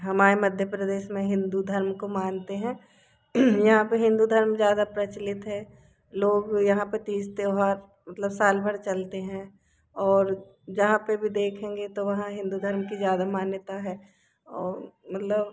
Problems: background sounds at intervals